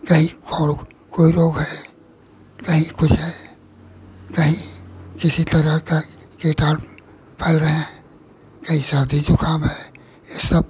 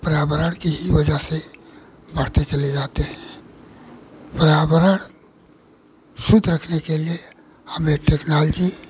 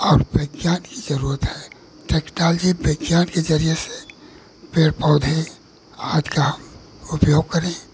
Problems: none marked